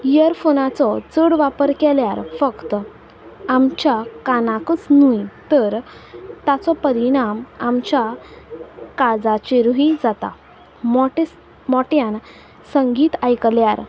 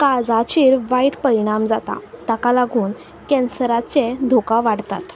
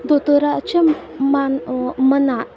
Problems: none marked